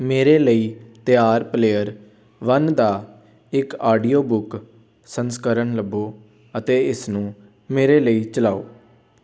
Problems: background sounds at intervals, background conversations at intervals